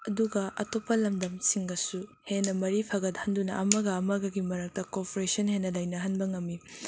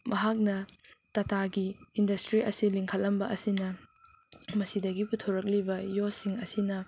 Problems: constant background noise